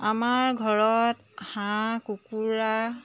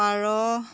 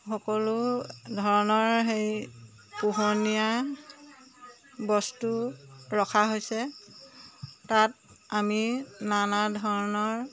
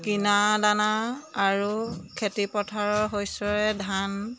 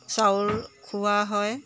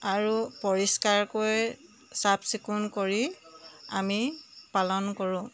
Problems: none marked